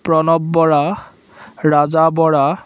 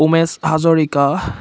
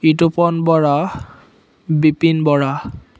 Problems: constant background noise